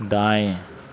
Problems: low volume